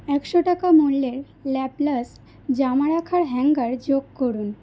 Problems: constant background noise